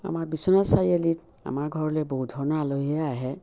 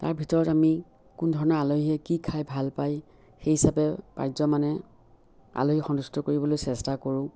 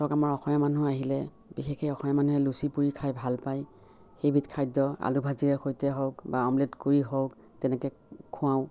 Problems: none marked